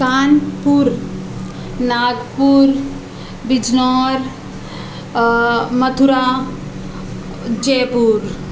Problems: constant background noise